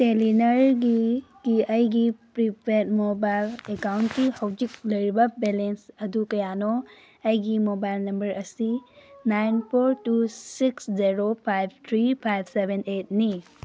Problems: none marked